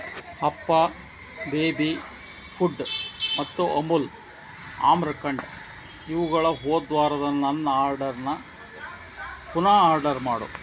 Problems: constant background noise